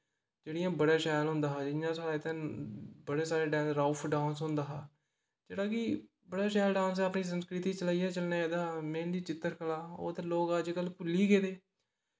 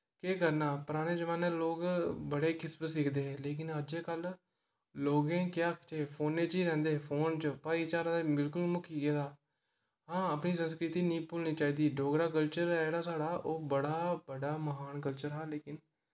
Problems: background sounds at intervals, echo